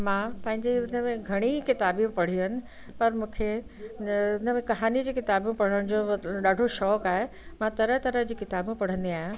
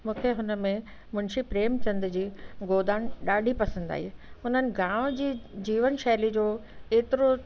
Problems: constant background noise, echo